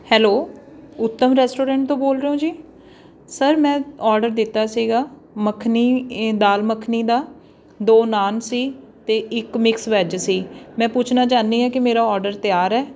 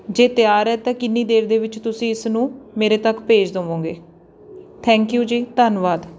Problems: none marked